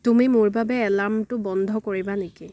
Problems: none marked